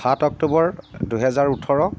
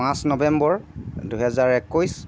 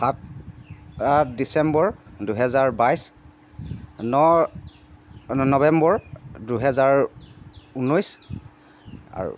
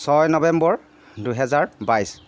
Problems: constant background noise